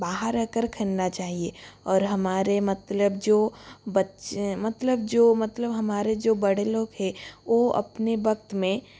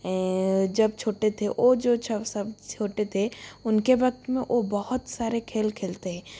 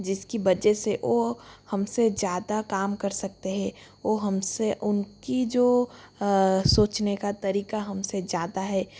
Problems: constant background noise